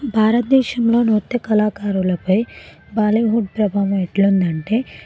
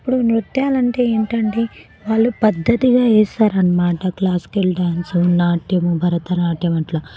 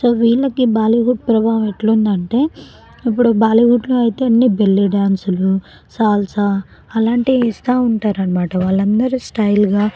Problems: background sounds at intervals, background conversations at intervals